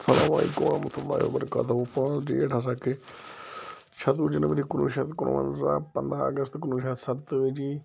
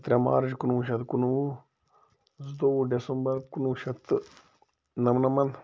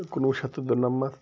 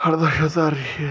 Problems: low volume